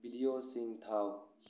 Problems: low volume